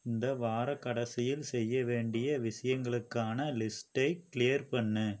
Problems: low volume